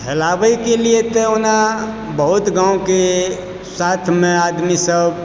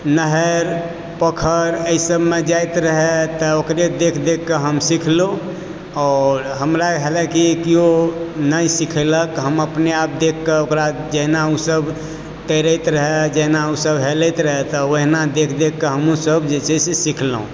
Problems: none marked